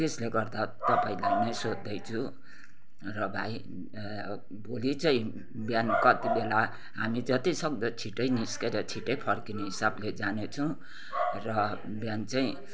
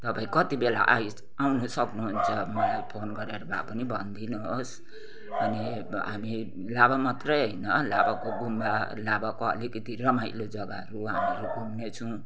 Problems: constant background noise